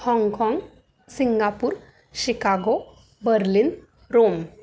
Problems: constant background noise